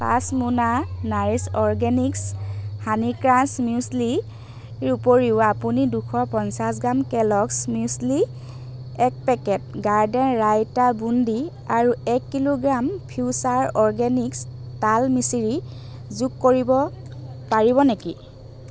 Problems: constant background noise, background conversations at intervals